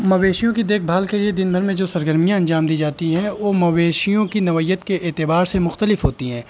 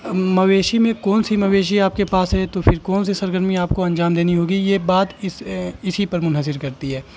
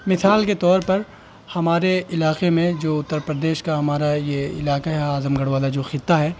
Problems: constant background noise